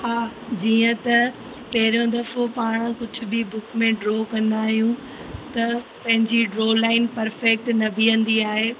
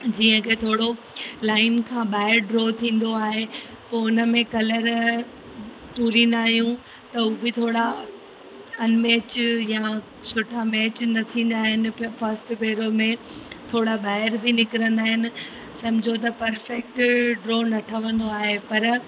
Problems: constant background noise, echo